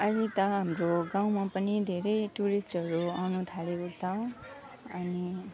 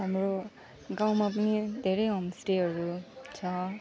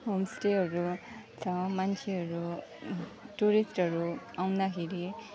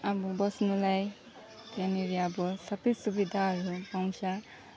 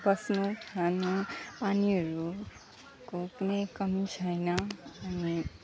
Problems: constant background noise, background conversations at intervals, low volume